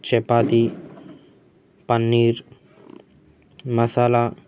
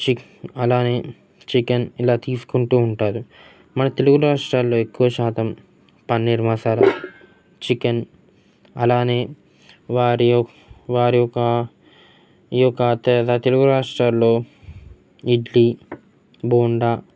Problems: constant background noise, background conversations at intervals